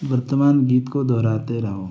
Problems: none marked